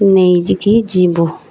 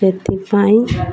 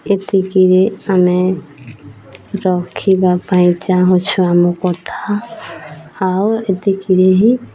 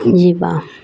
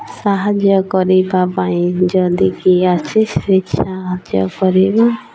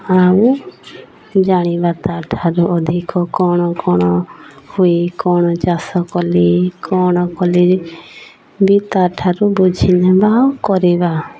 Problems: constant background noise, continuous background conversations